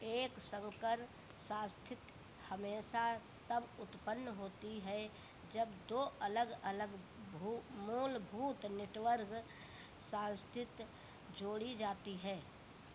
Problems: constant background noise